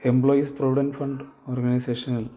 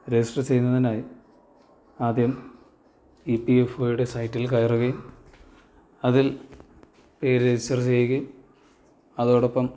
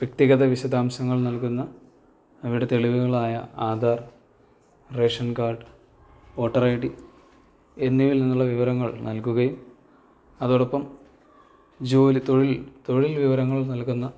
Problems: low volume